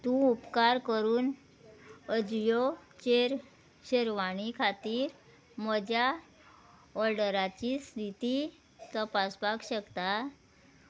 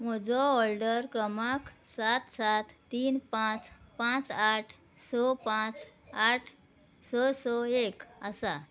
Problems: background sounds at intervals, background conversations at intervals